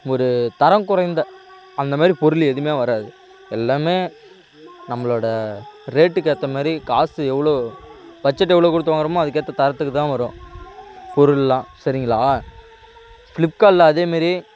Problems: constant background noise